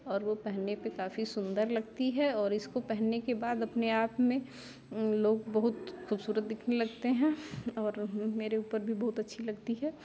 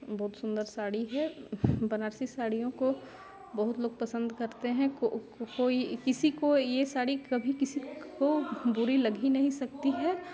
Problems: constant background noise